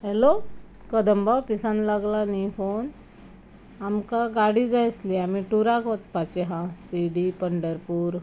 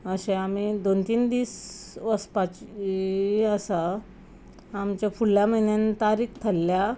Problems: background sounds at intervals